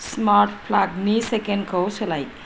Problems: constant background noise